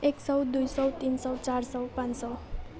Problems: none marked